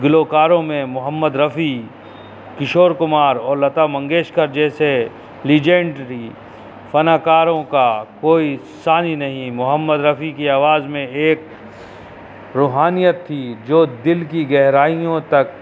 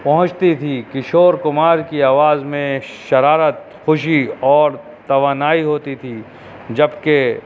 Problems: constant background noise